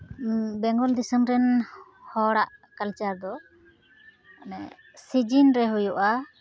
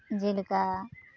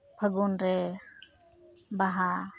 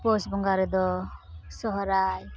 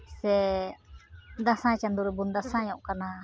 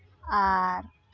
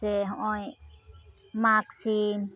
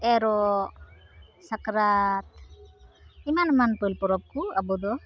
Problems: constant background noise